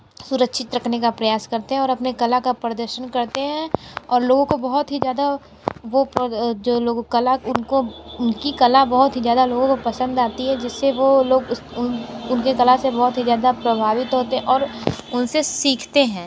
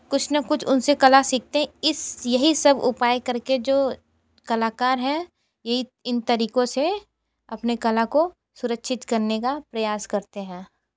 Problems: constant background noise